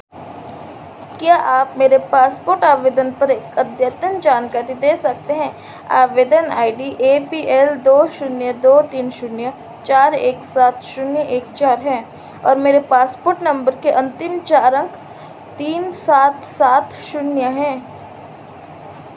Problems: constant background noise